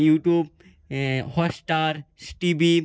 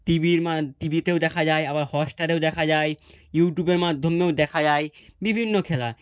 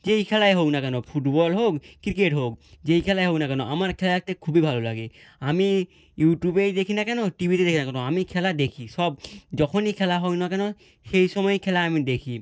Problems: none marked